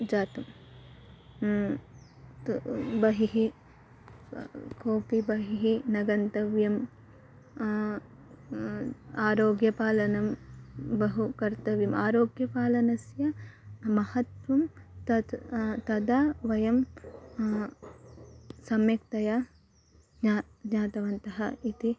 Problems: constant background noise